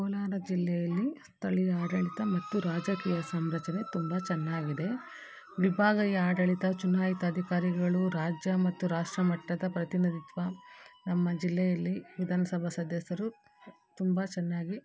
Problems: background sounds at intervals